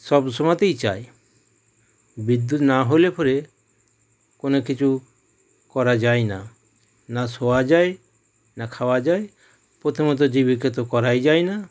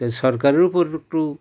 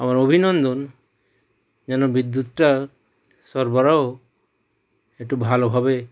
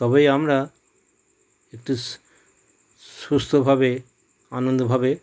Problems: background sounds at intervals